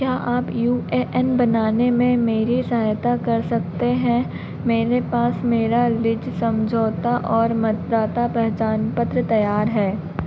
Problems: none marked